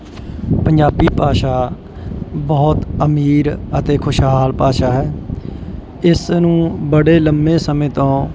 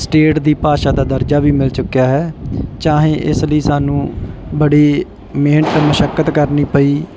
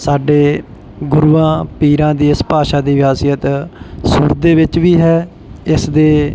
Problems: background sounds at intervals